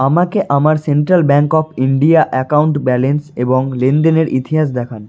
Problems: background sounds at intervals